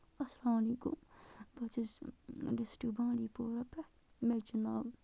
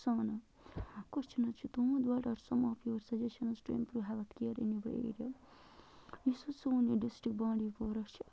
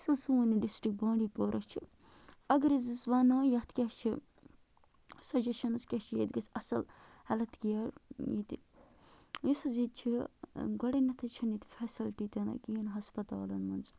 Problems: constant background noise, low volume